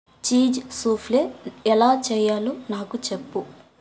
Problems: constant background noise